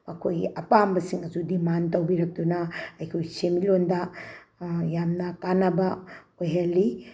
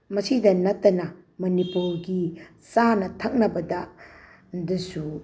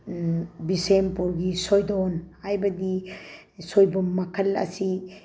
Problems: none marked